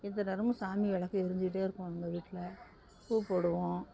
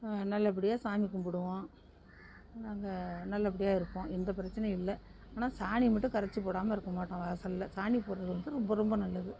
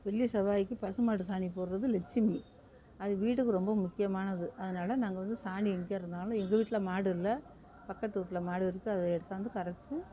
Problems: background sounds at intervals